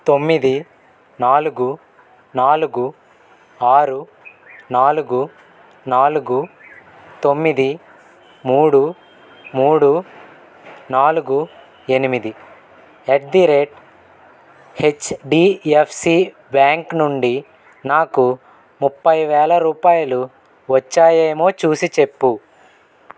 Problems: background sounds at intervals